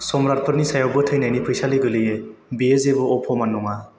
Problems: constant background noise